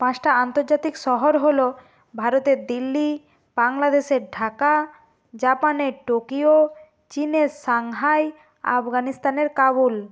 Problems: constant background noise